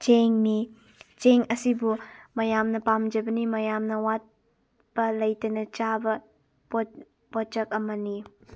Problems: none marked